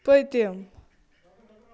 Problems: constant background noise